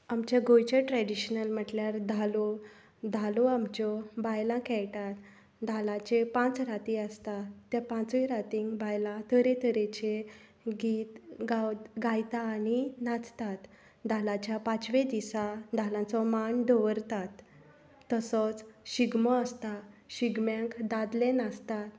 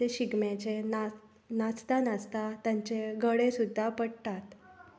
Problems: none marked